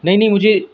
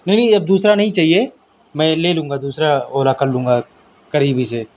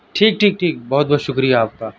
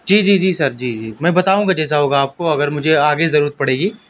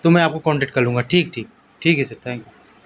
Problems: constant background noise